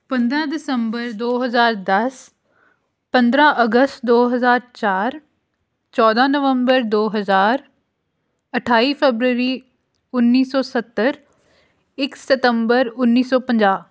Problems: none marked